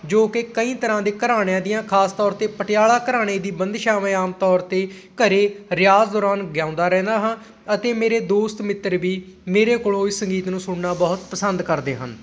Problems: background sounds at intervals